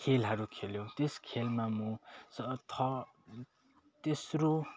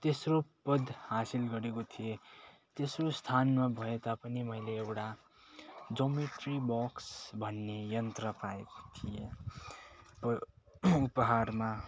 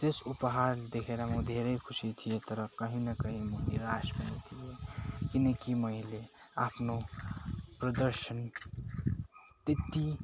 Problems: none marked